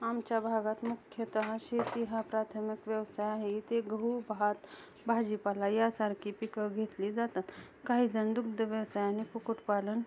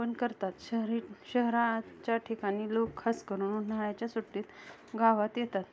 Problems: none marked